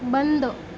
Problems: constant background noise